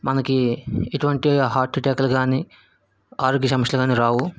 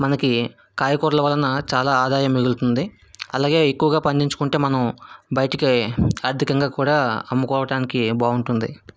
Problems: background sounds at intervals